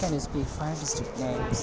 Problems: none marked